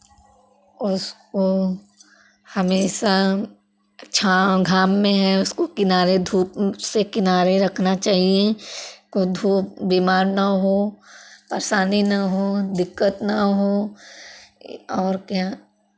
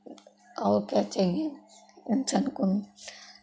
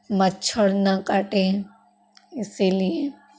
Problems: none marked